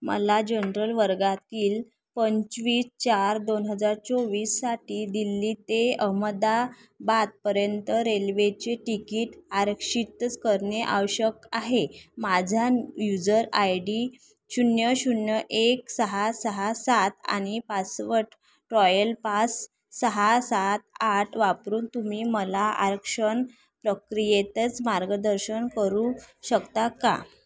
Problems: background sounds at intervals